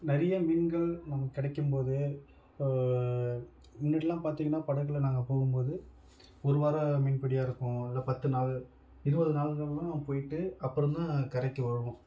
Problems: none marked